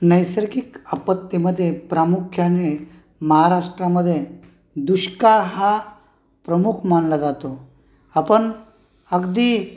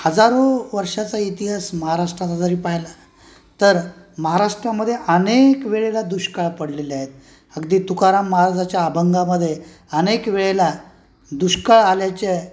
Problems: constant background noise, continuous background conversations